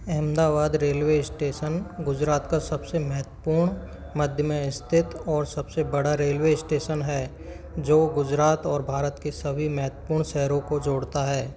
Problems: constant background noise, continuous background conversations